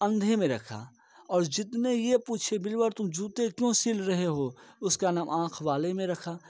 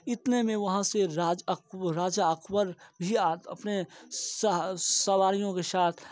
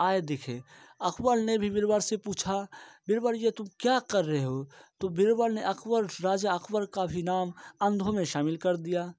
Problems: background sounds at intervals, low volume